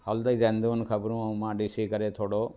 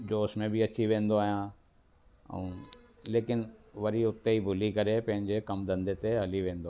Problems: constant background noise